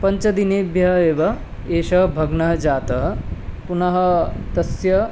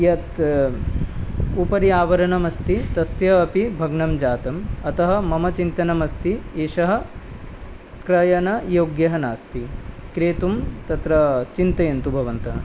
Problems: constant background noise